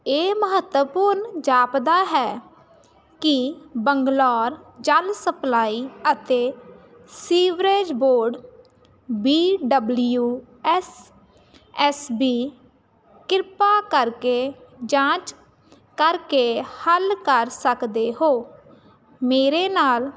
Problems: none marked